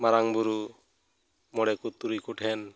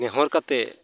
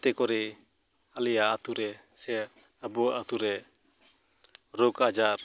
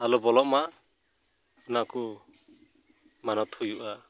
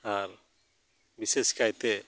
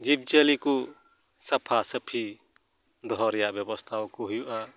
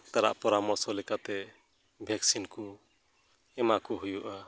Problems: none marked